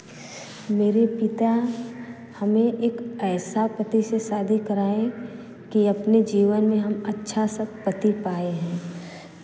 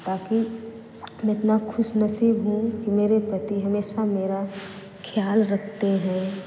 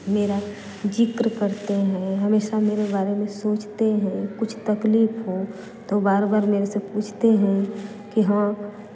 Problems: constant background noise